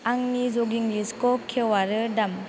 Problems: constant background noise